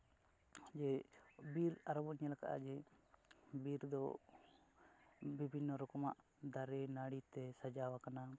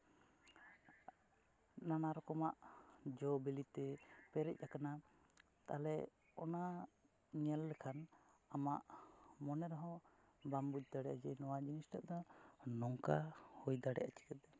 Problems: none marked